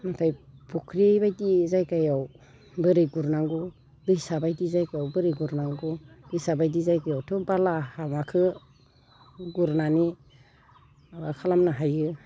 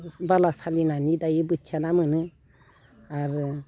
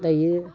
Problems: constant background noise